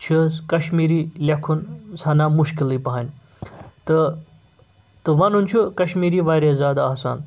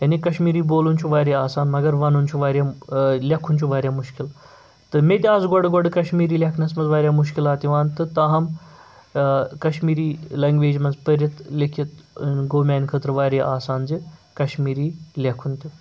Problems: none marked